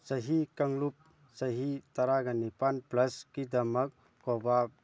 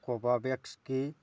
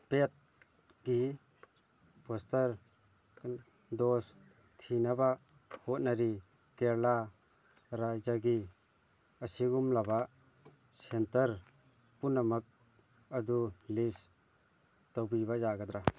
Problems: background conversations at intervals